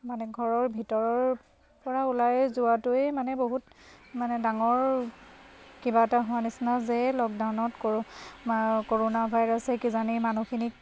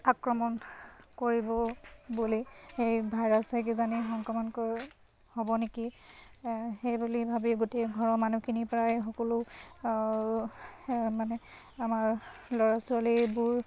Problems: constant background noise